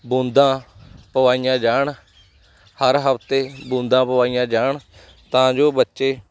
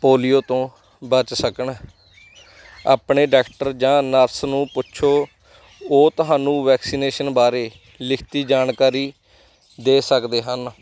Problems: none marked